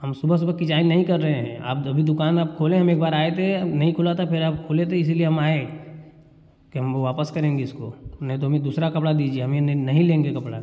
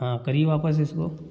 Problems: none marked